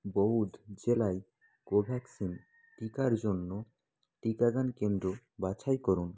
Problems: background sounds at intervals